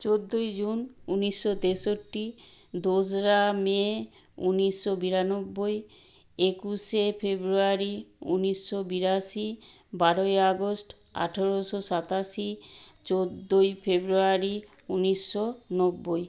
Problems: constant background noise